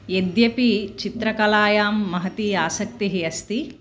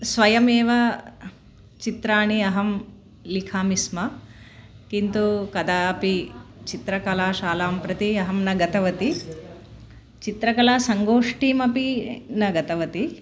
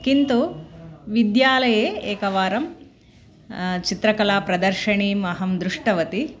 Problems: none marked